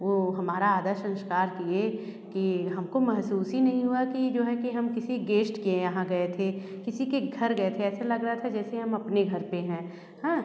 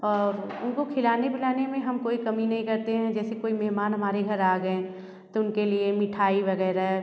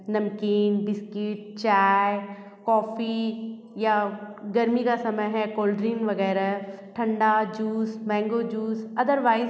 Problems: none marked